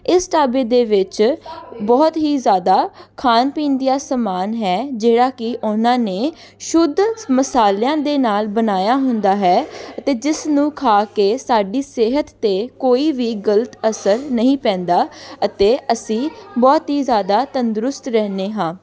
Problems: background conversations at intervals